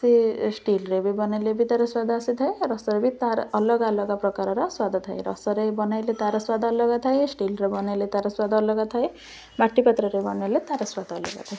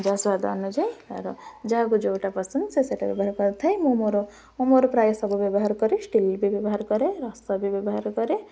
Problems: none marked